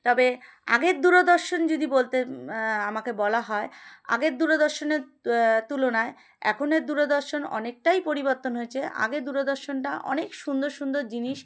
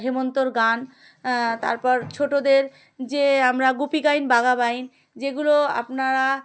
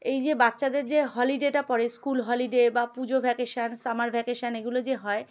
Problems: none marked